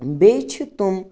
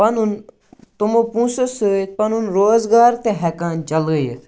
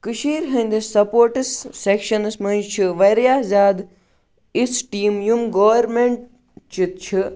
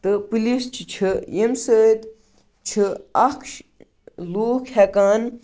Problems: background sounds at intervals